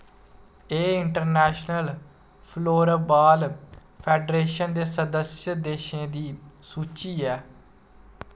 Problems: constant background noise